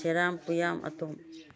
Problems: low volume